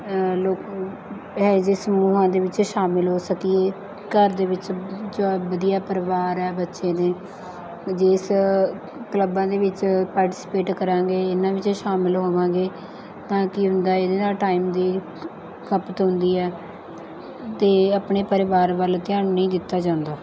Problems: none marked